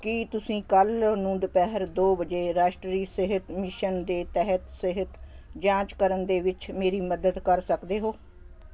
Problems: constant background noise